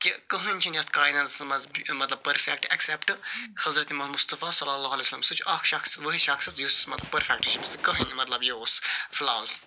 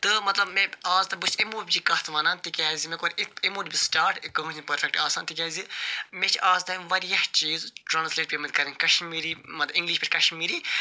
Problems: constant background noise